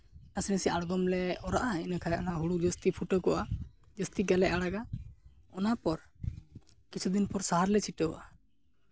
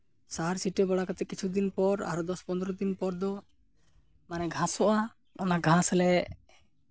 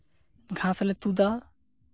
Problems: background sounds at intervals